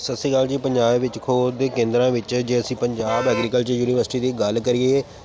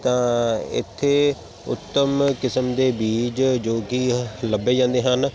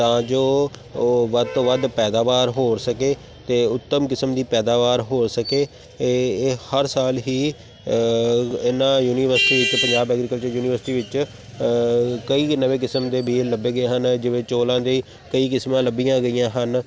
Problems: none marked